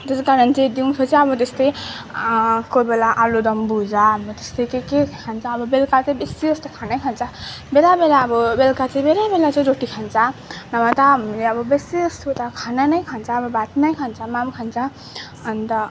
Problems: constant background noise, background conversations at intervals